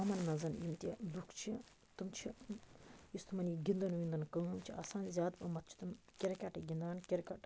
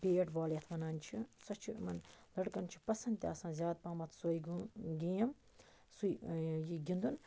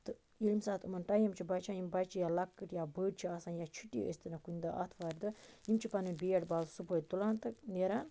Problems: none marked